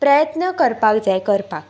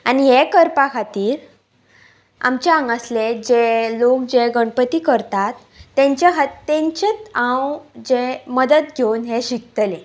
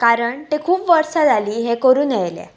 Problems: background sounds at intervals